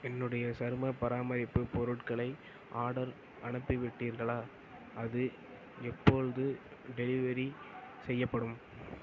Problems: constant background noise